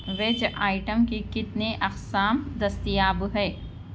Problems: background sounds at intervals